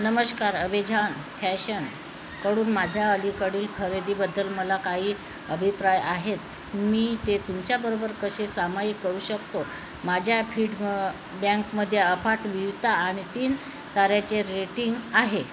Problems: constant background noise